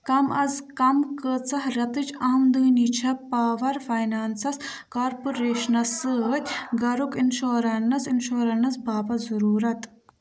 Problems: background sounds at intervals, background conversations at intervals